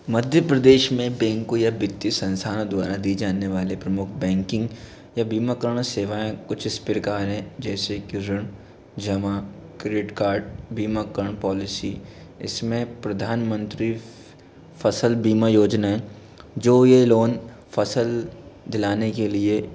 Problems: none marked